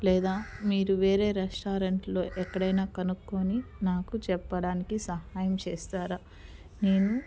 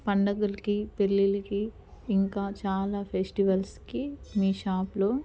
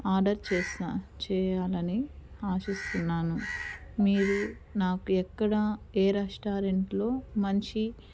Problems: constant background noise